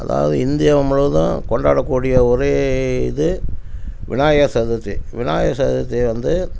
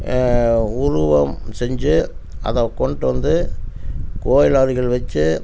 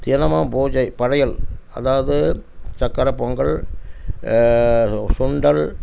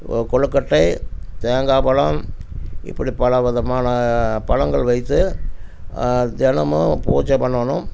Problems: constant background noise